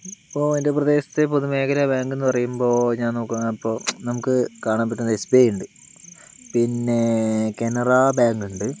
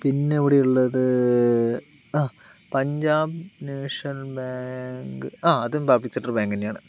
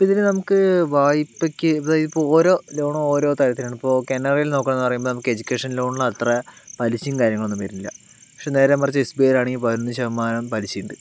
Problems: none marked